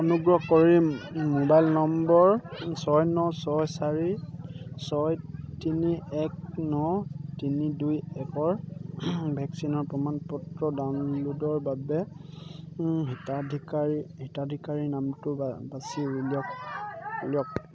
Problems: none marked